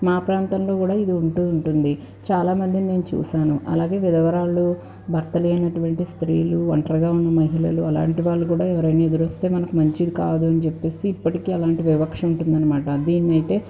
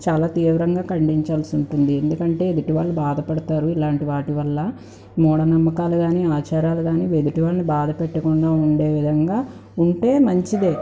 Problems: background conversations at intervals